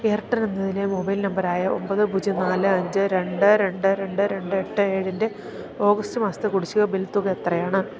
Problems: continuous background conversations